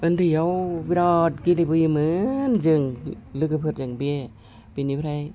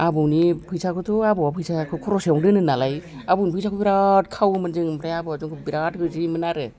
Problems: background conversations at intervals